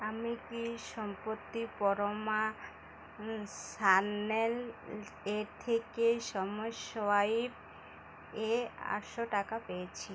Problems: constant background noise